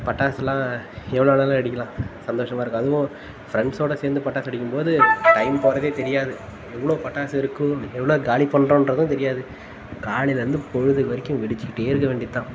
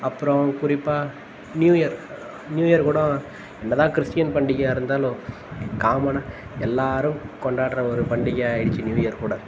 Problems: constant background noise